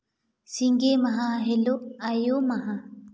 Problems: echo